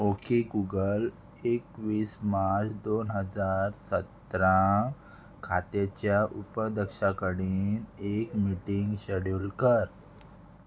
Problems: none marked